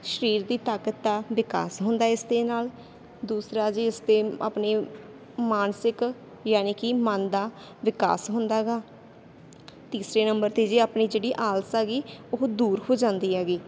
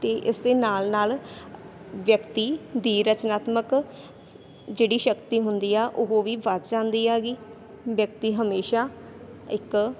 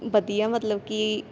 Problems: constant background noise